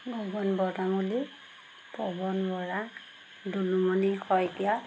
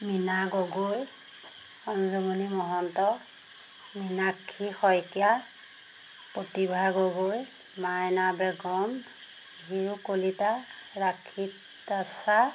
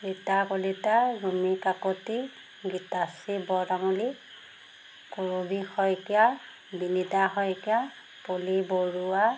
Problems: constant background noise